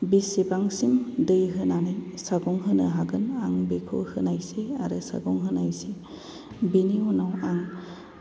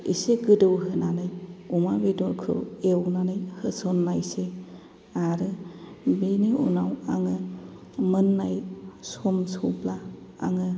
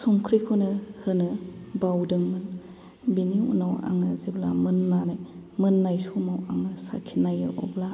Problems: low volume